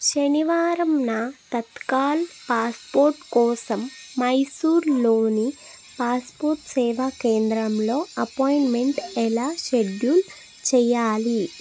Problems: constant background noise